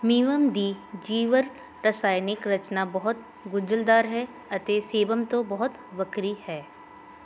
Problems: none marked